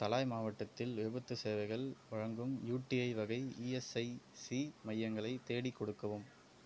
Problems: constant background noise